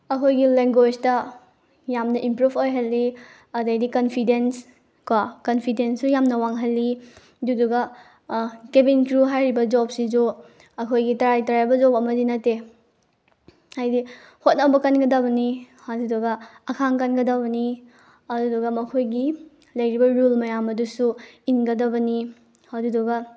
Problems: none marked